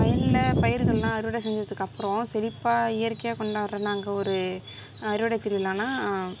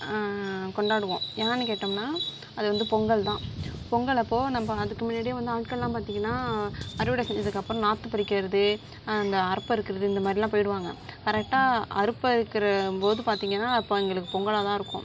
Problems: background sounds at intervals